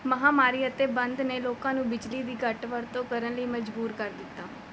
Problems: none marked